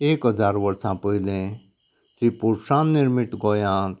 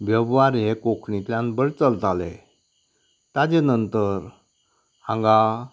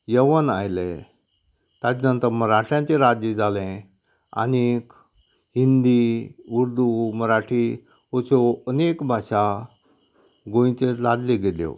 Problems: none marked